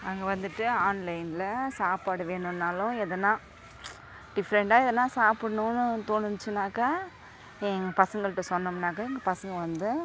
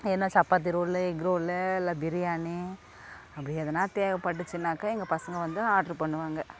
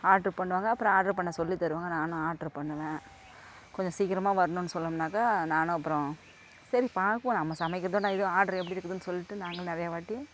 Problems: none marked